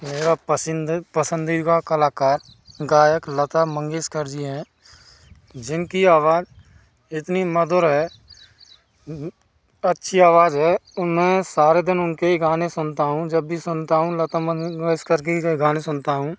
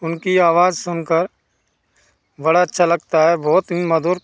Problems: constant background noise